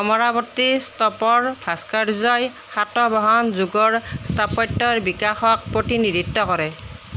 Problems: none marked